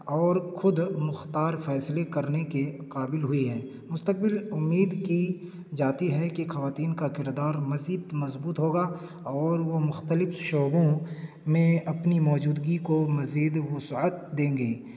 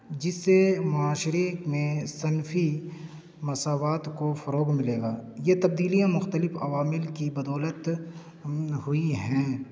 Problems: constant background noise